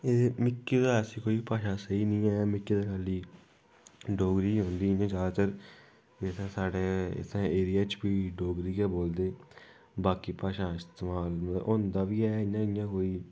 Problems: constant background noise